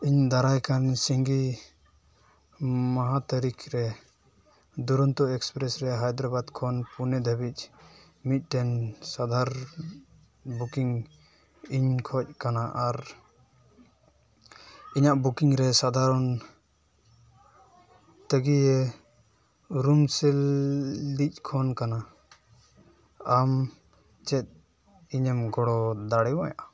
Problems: background sounds at intervals